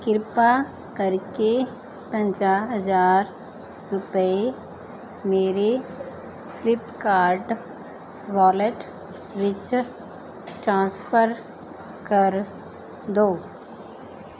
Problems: background sounds at intervals